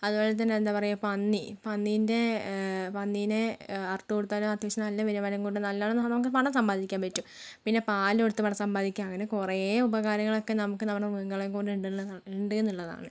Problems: low volume